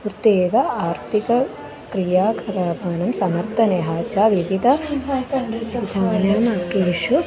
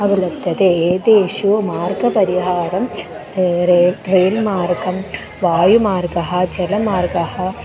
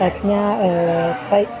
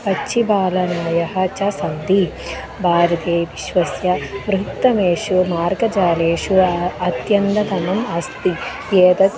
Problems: none marked